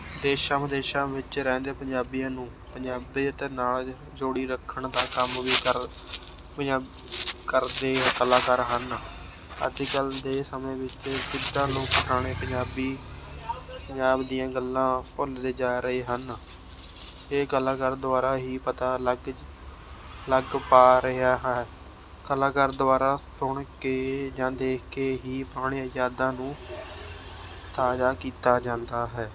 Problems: constant background noise, background conversations at intervals